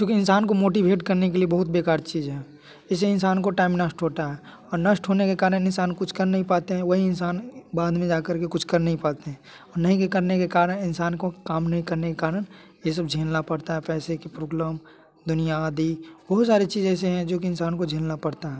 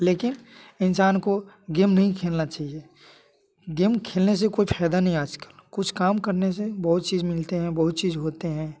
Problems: none marked